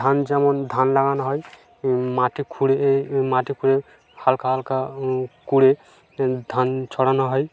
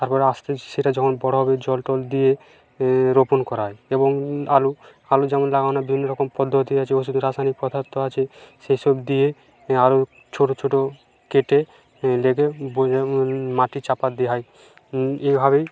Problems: none marked